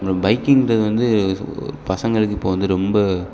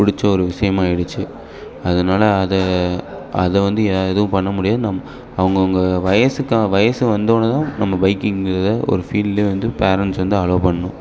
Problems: background sounds at intervals